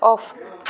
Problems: none marked